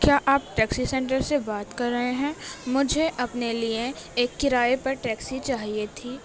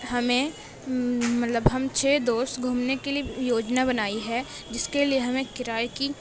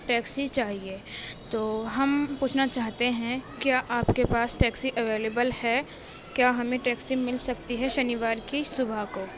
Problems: constant background noise